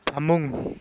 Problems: none marked